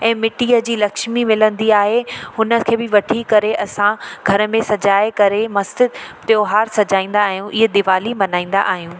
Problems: constant background noise, echo